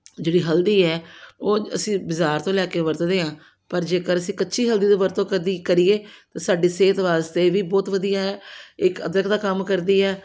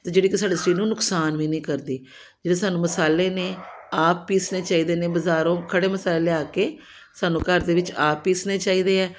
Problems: background sounds at intervals